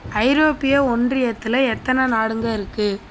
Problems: constant background noise